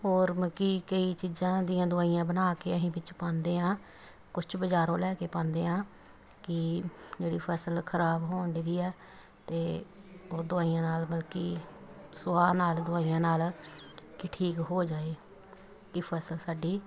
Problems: constant background noise, background conversations at intervals